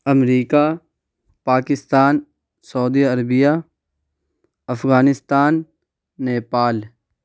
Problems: none marked